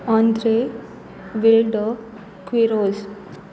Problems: none marked